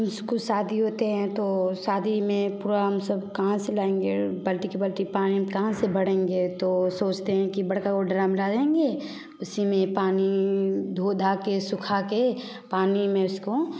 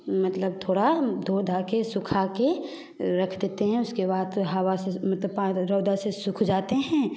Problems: none marked